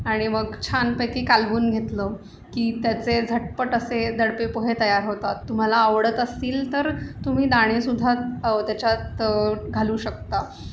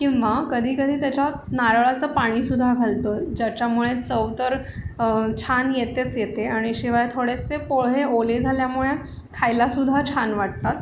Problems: constant background noise